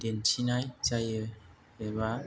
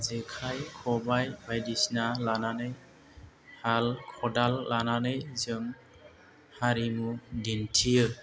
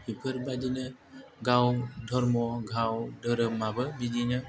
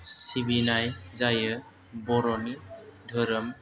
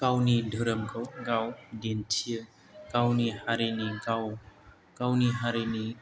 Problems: none marked